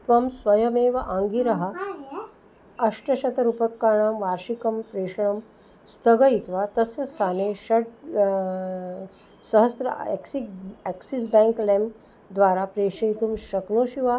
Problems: background sounds at intervals